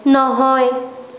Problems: constant background noise